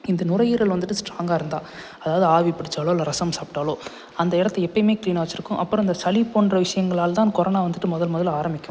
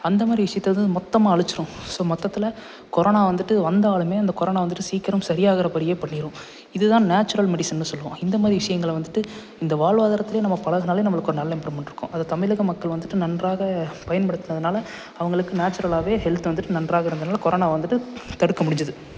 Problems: constant background noise